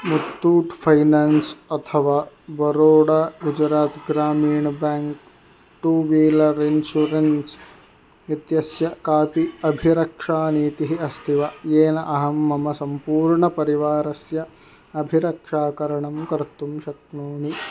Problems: constant background noise